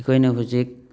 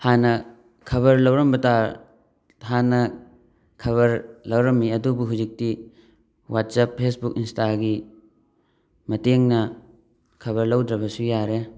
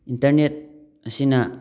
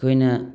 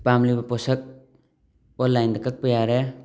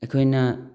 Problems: background sounds at intervals, background conversations at intervals